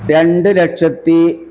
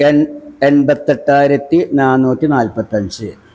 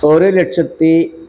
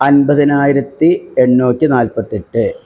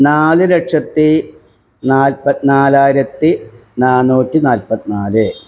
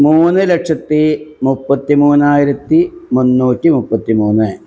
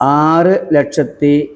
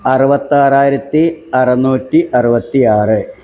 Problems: background sounds at intervals